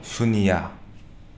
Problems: none marked